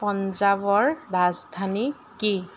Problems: constant background noise